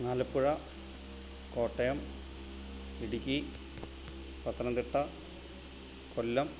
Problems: constant background noise